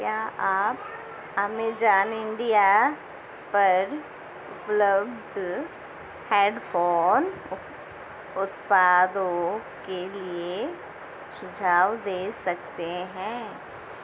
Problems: constant background noise